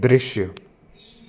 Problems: constant background noise